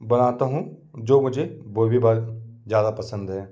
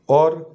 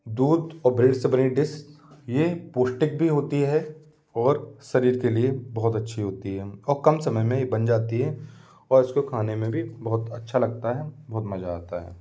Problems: constant background noise